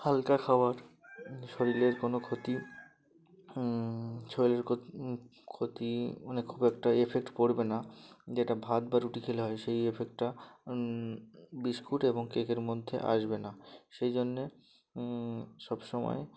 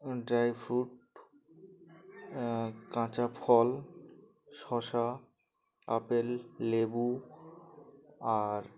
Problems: constant background noise, background conversations at intervals